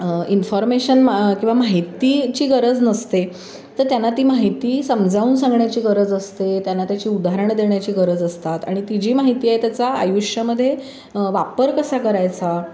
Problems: constant background noise, background conversations at intervals